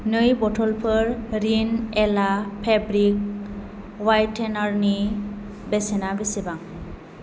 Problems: constant background noise